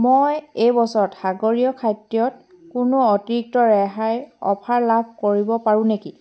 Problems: background sounds at intervals